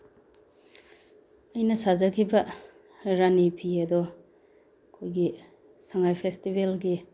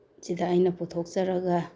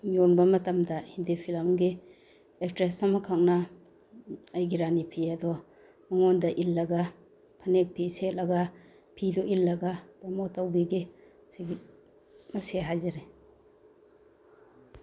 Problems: background sounds at intervals